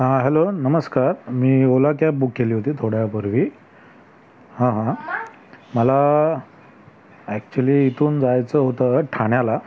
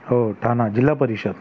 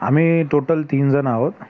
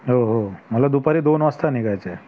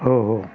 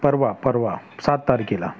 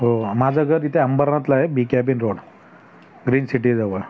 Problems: background sounds at intervals, background conversations at intervals